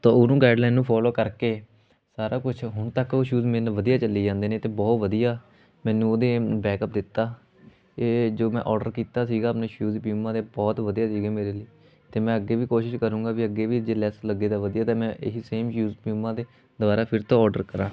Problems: none marked